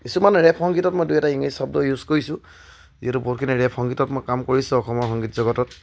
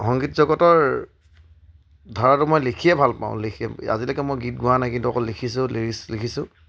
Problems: background sounds at intervals